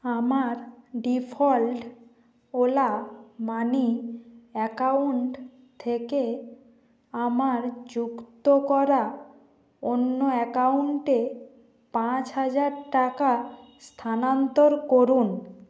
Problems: background sounds at intervals